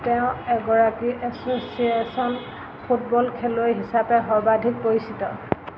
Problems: constant background noise